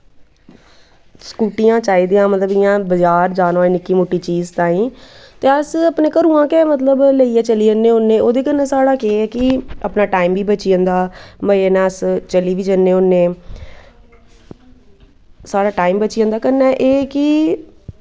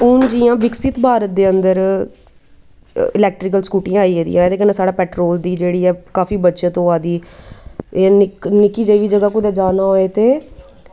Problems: none marked